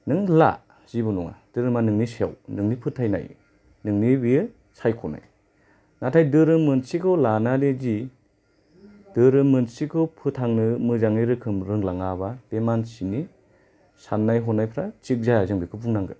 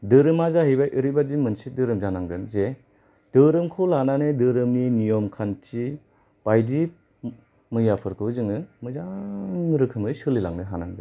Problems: low volume